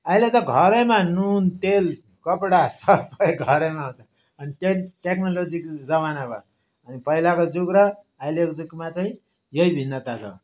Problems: background sounds at intervals